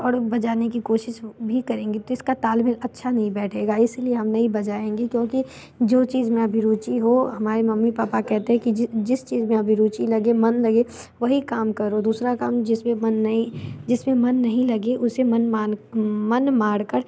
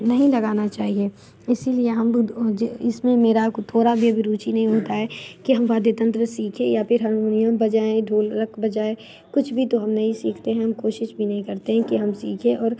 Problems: background sounds at intervals